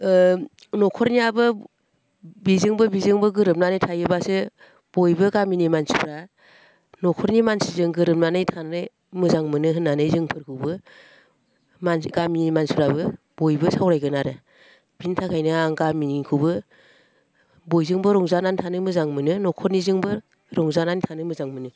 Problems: constant background noise